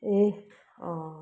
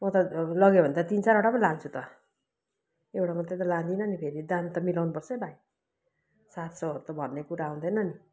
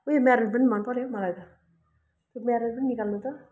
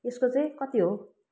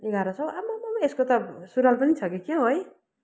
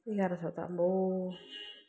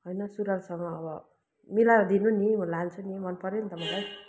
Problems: constant background noise